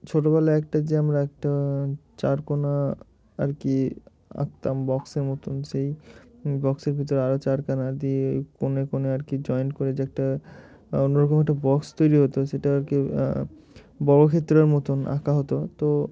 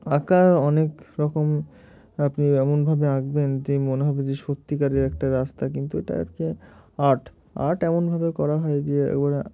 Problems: none marked